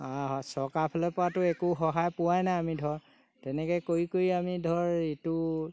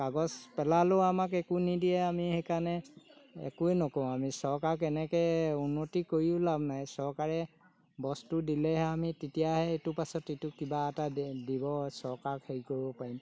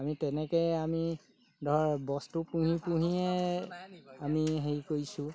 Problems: background sounds at intervals